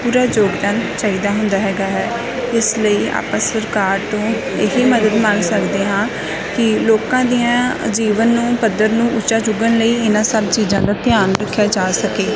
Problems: constant background noise, continuous background conversations